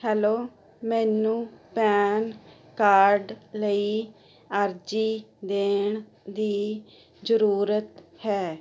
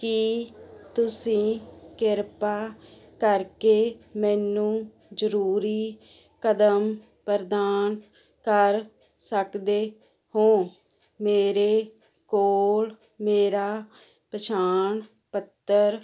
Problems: none marked